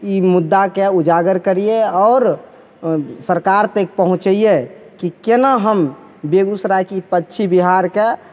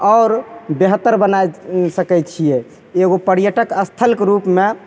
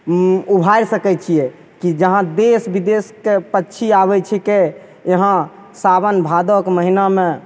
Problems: none marked